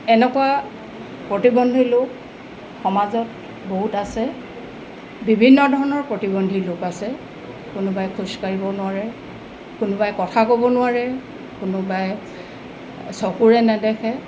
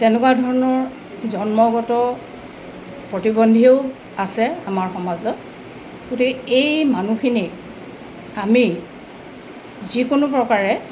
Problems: constant background noise